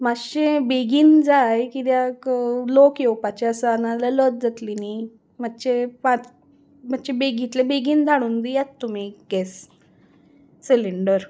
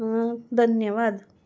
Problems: background sounds at intervals